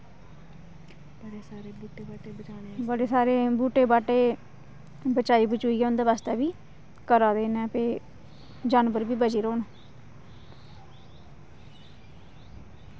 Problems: background sounds at intervals